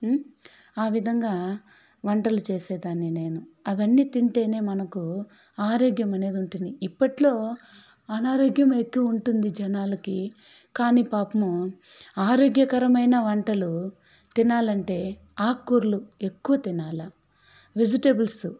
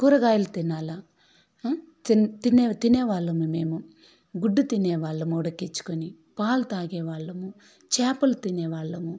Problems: background sounds at intervals, background conversations at intervals